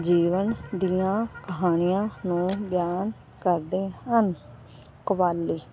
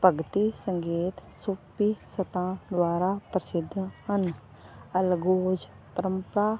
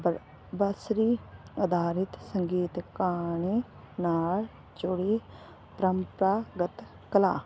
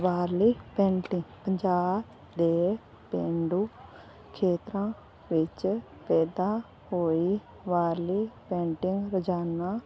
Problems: none marked